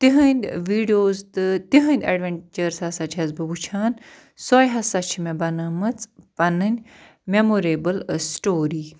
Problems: none marked